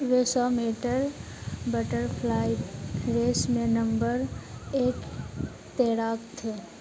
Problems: none marked